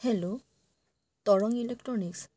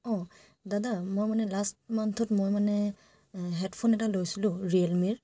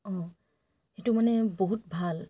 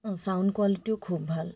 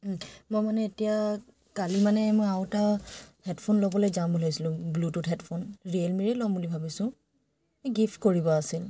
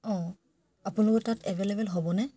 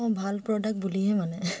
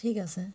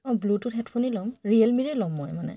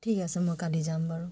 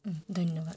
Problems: none marked